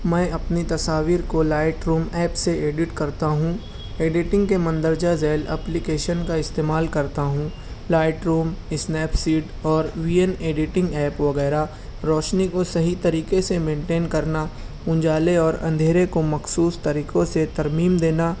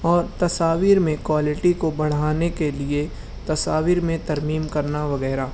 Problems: none marked